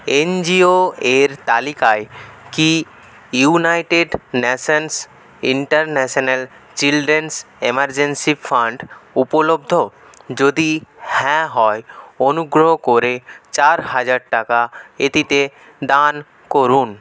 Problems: none marked